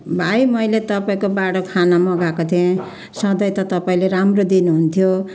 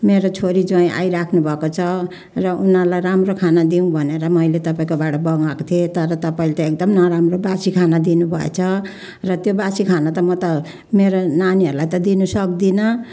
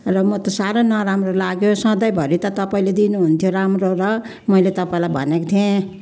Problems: none marked